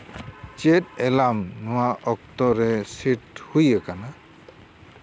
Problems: constant background noise